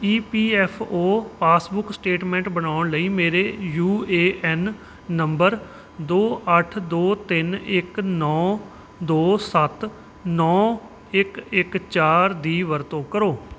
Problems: background sounds at intervals